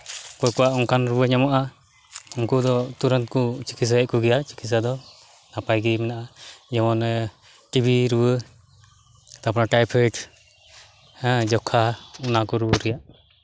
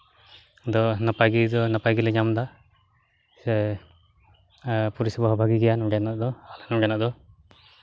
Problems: background sounds at intervals